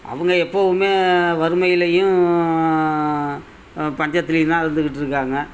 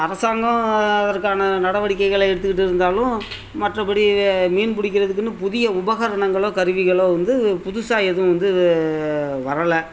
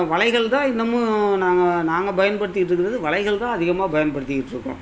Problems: constant background noise